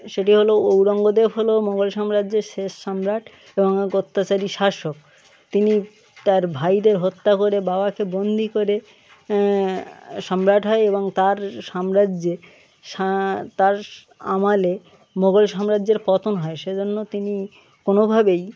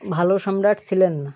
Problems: none marked